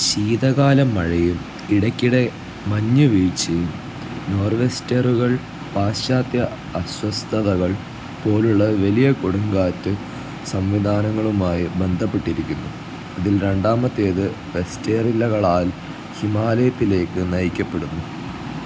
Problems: constant background noise, low volume